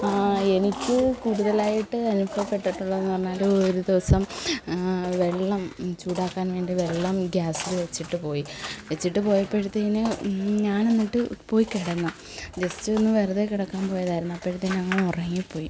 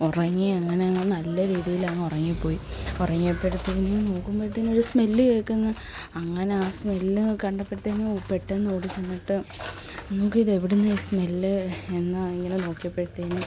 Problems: constant background noise